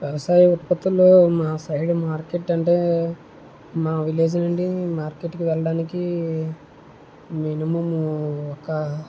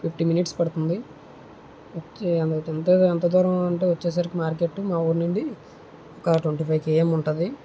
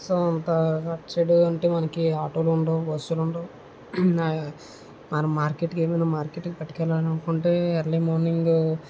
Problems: low volume